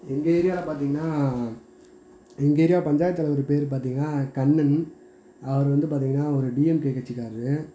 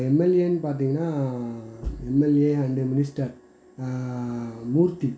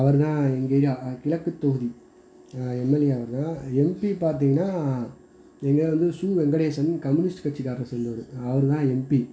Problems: constant background noise